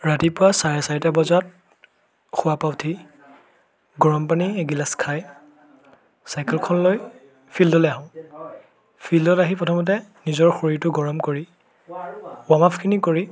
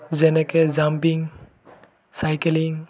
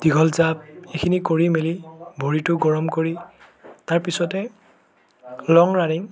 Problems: continuous background conversations